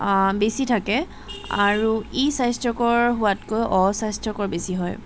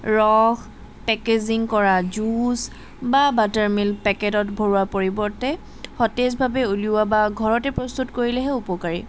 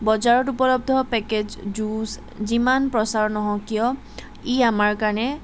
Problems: none marked